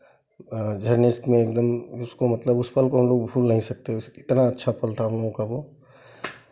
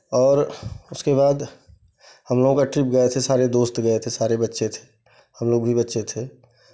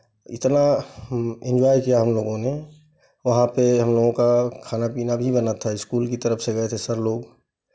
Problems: background sounds at intervals, background conversations at intervals